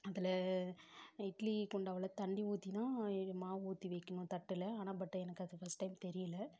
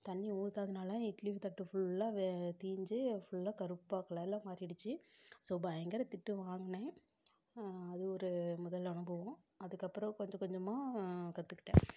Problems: low volume